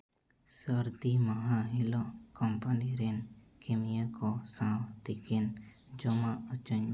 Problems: none marked